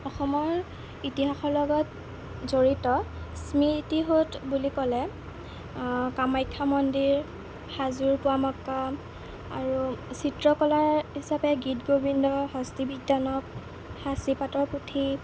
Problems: constant background noise